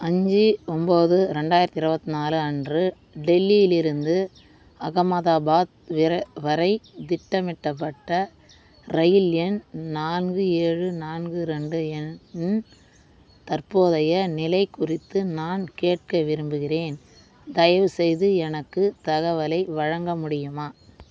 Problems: constant background noise